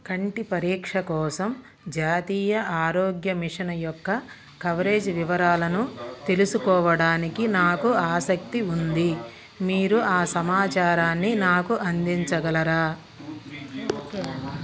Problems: background conversations at intervals